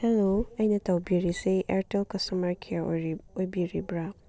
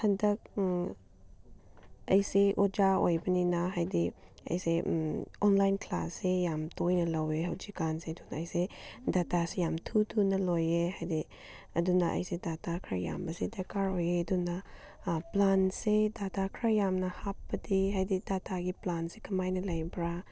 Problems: none marked